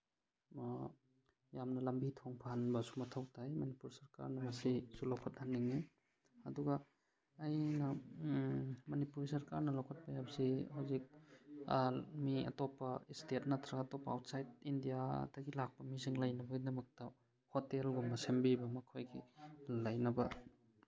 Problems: none marked